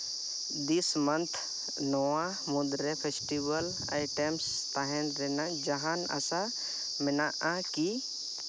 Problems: constant background noise